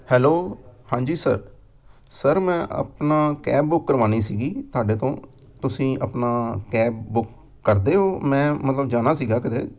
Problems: background sounds at intervals